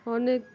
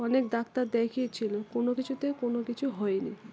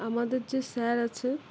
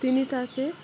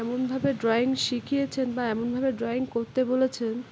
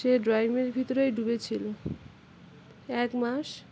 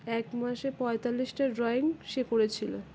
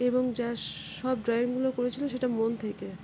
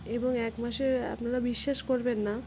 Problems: constant background noise